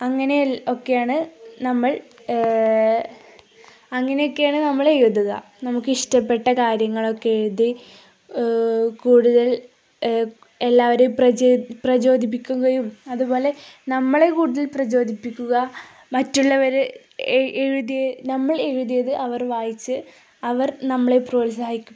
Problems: none marked